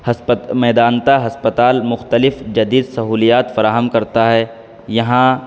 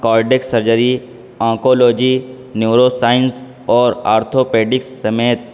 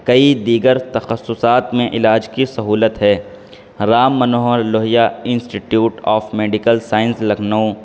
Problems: constant background noise